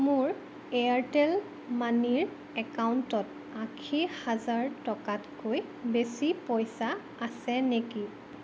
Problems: none marked